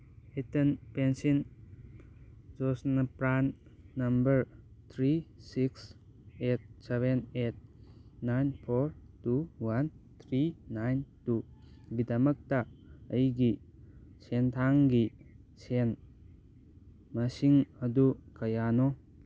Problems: none marked